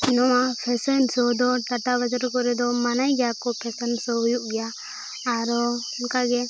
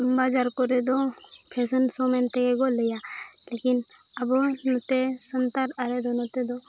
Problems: constant background noise, background conversations at intervals